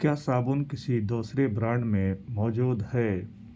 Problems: none marked